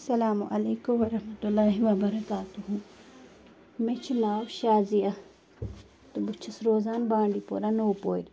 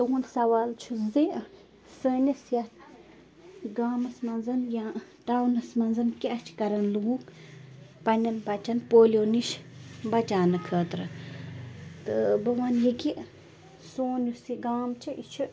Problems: constant background noise